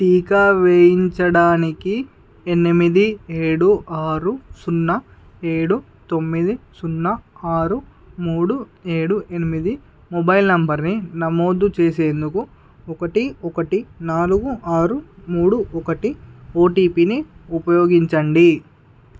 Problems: none marked